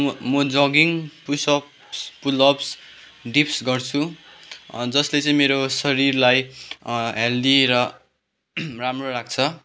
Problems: background sounds at intervals